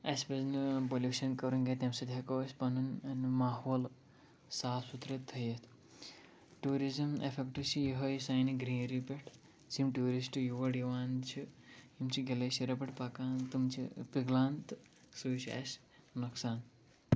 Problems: low volume